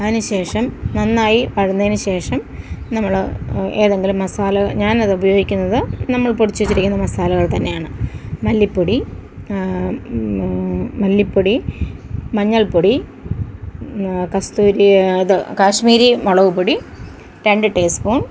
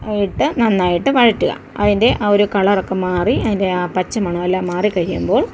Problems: background sounds at intervals